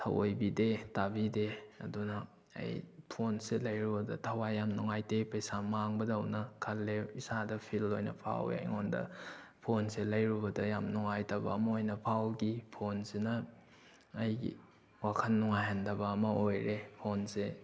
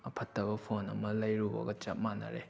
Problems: background sounds at intervals